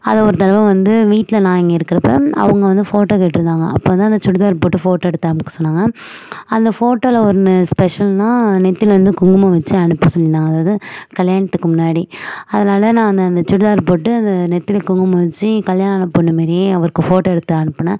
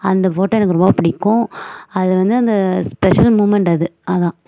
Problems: background sounds at intervals